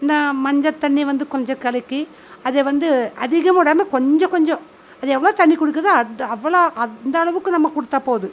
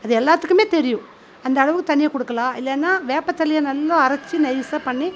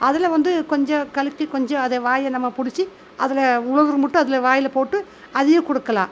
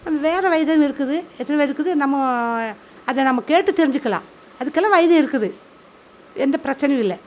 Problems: constant background noise